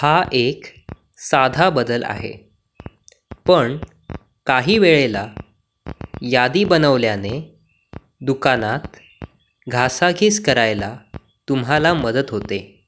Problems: constant background noise